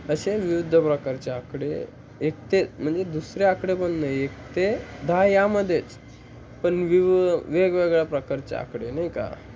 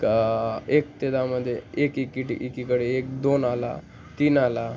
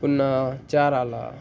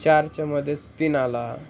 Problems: constant background noise